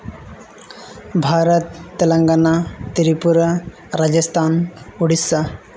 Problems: none marked